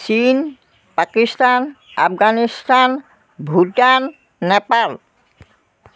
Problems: constant background noise